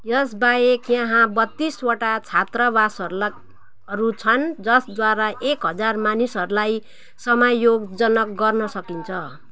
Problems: constant background noise